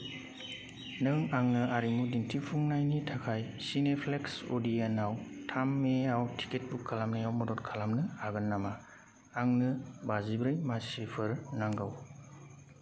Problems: constant background noise